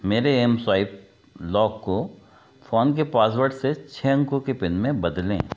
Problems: background sounds at intervals